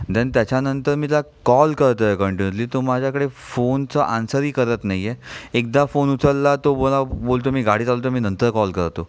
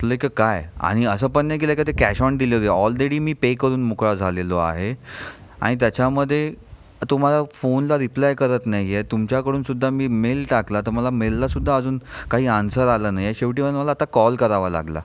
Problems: none marked